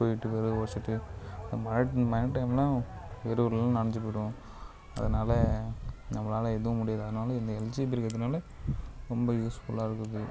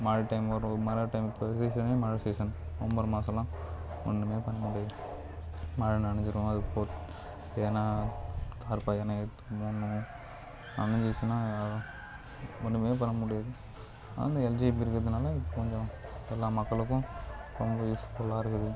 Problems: low volume